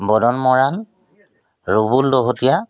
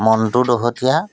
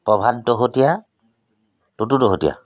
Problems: constant background noise